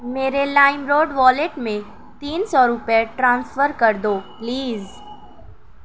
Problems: constant background noise